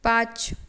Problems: none marked